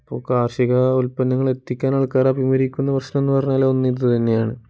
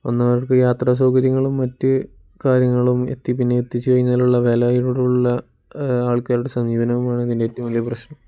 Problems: none marked